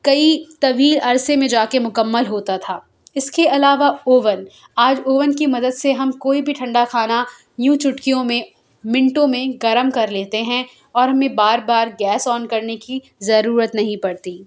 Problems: none marked